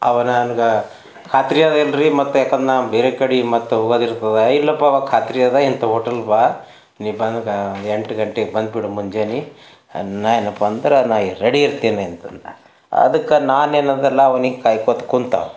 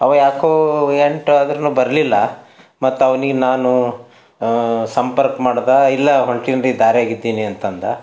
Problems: none marked